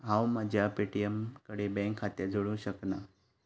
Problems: none marked